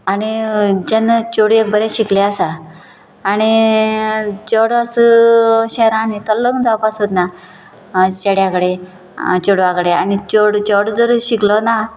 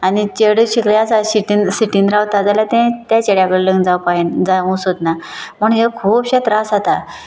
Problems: constant background noise